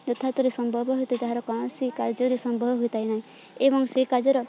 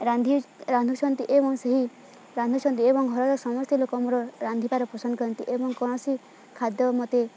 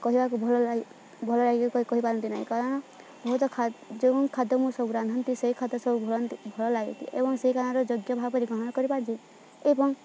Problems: none marked